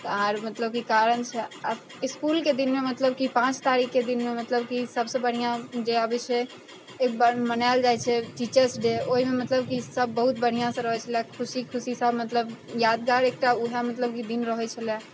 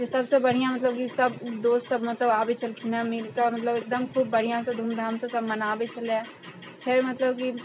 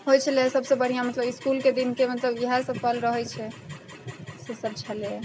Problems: constant background noise